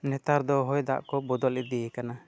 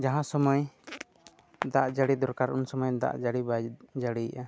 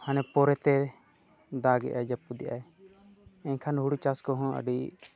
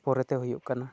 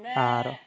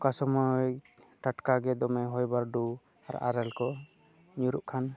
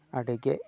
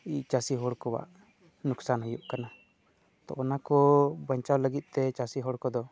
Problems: none marked